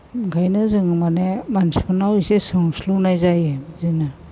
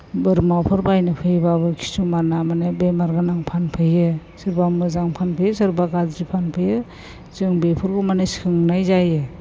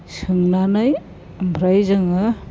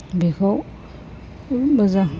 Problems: constant background noise